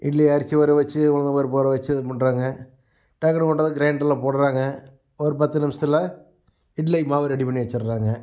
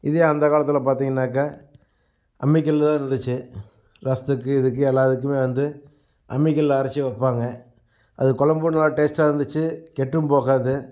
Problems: none marked